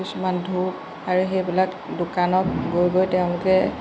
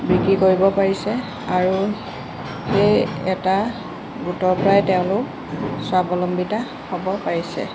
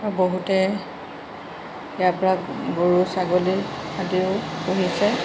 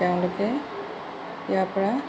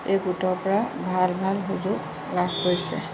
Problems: constant background noise